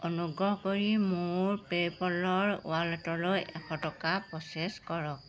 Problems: none marked